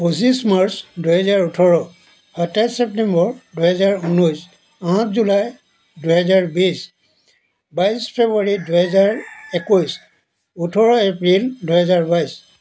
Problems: constant background noise